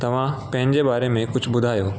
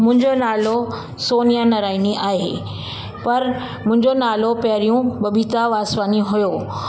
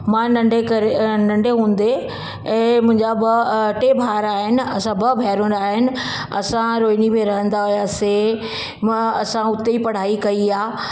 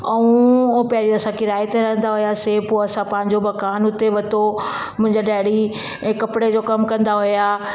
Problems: background sounds at intervals, echo